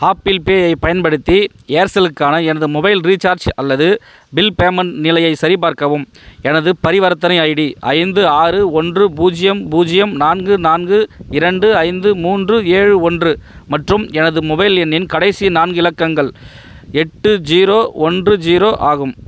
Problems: none marked